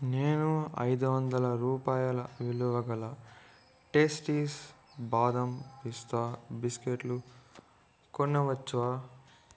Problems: low volume